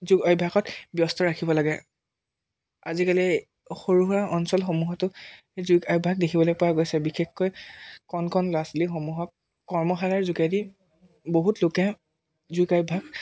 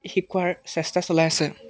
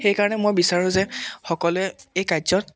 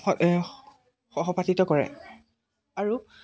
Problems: background sounds at intervals